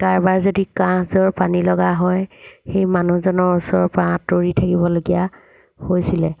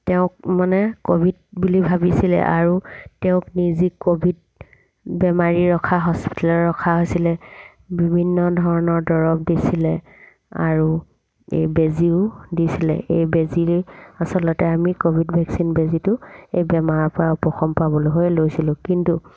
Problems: background sounds at intervals